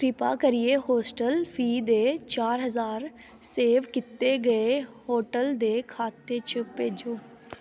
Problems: background sounds at intervals, echo